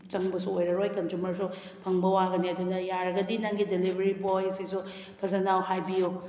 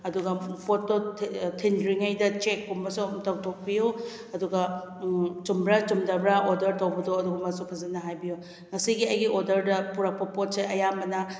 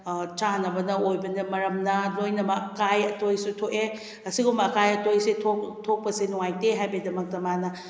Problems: background sounds at intervals